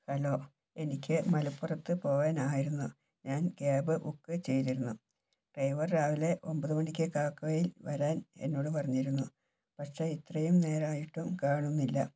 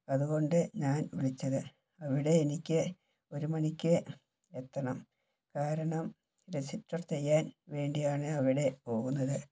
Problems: background sounds at intervals, low volume